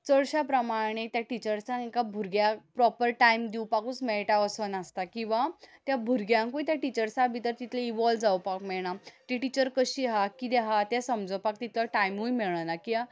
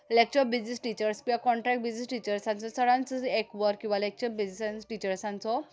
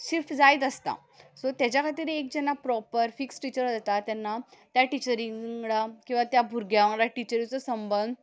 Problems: background sounds at intervals